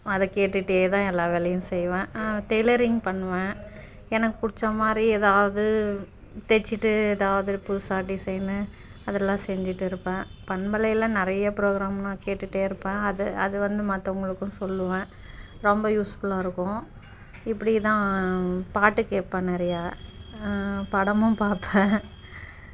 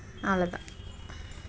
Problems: background sounds at intervals